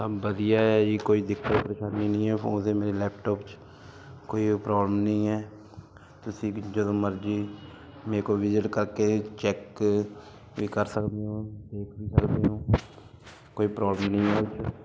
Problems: background sounds at intervals